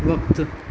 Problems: constant background noise, low volume